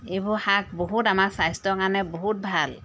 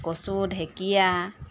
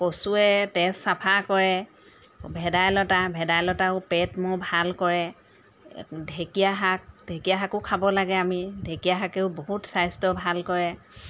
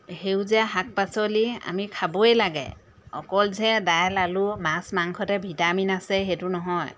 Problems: background sounds at intervals